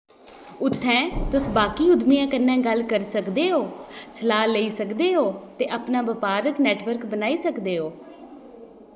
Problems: background sounds at intervals